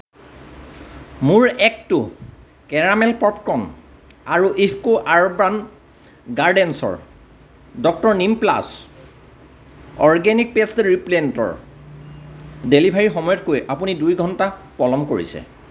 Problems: none marked